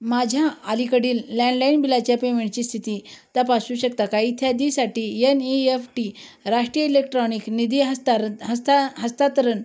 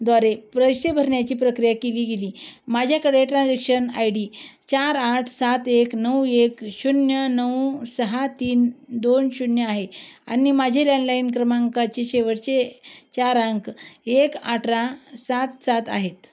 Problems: constant background noise